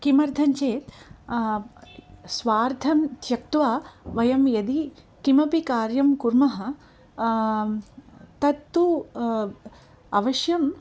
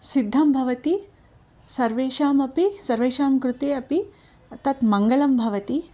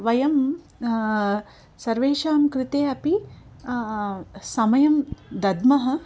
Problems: none marked